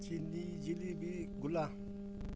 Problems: constant background noise